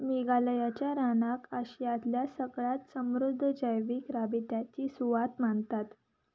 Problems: background sounds at intervals